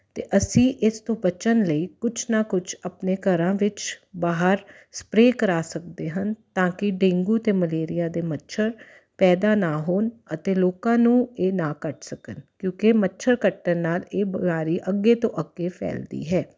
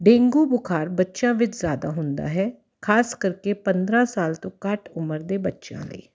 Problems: none marked